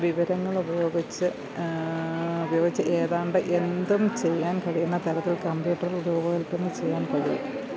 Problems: low volume